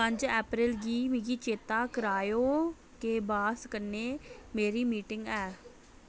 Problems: none marked